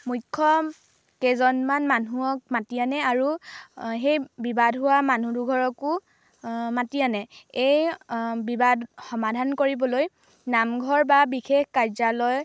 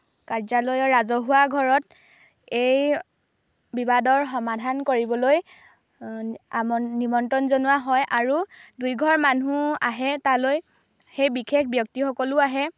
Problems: background sounds at intervals